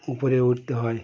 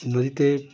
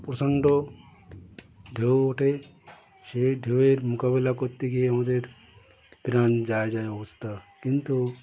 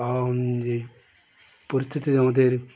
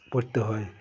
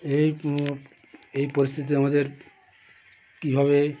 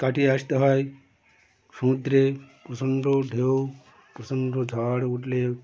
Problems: continuous background conversations